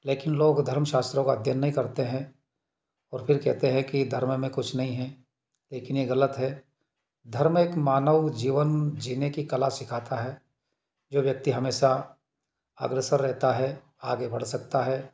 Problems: background sounds at intervals